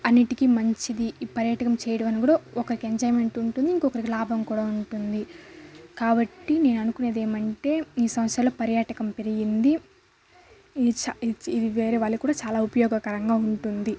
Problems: constant background noise, background conversations at intervals